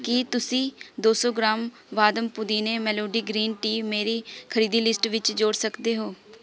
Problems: background conversations at intervals